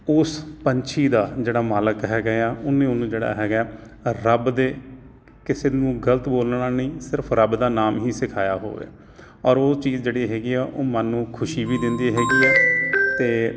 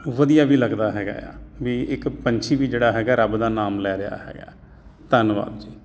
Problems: constant background noise